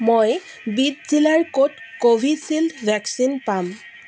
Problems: constant background noise